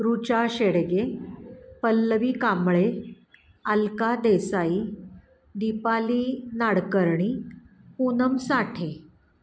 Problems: background sounds at intervals